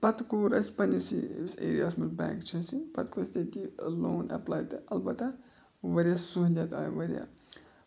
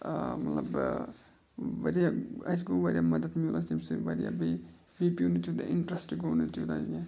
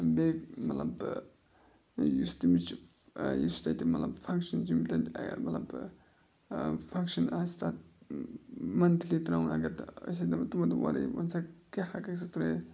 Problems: constant background noise